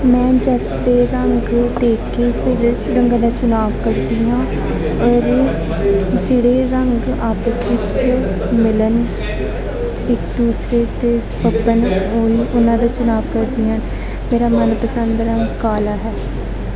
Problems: constant background noise, continuous background conversations